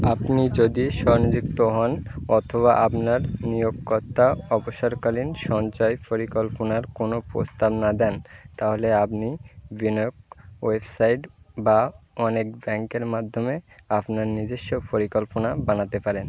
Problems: constant background noise